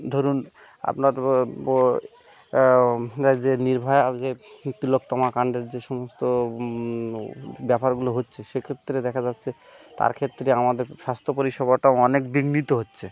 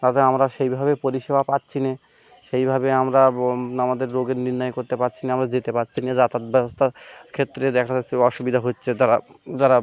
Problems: background sounds at intervals